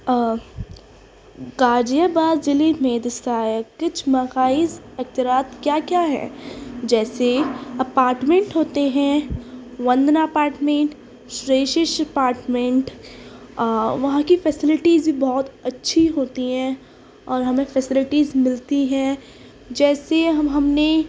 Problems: constant background noise